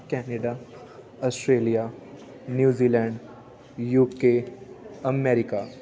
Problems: continuous background conversations